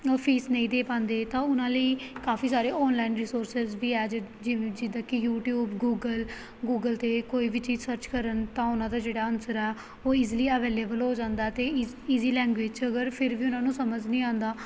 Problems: background sounds at intervals